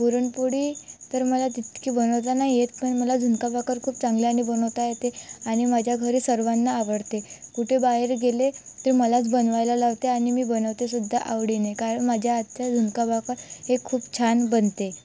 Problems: constant background noise, background conversations at intervals